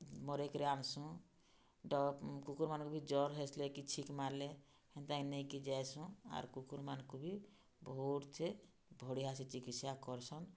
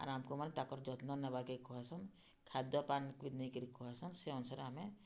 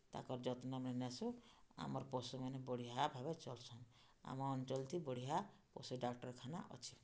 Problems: none marked